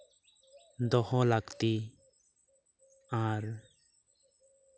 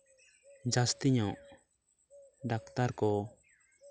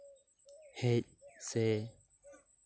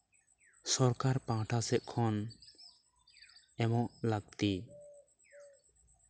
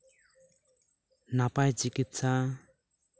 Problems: constant background noise, continuous background conversations